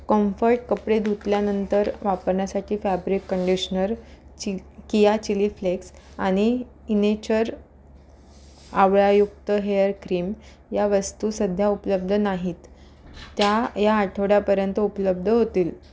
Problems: background sounds at intervals